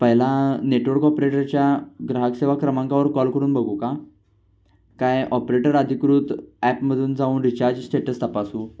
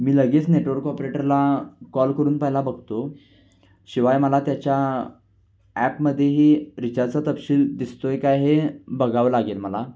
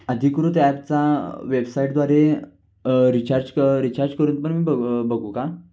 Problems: none marked